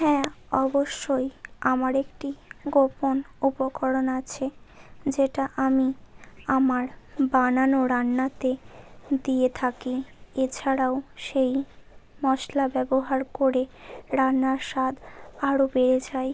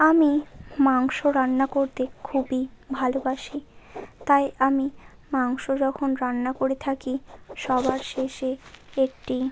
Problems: constant background noise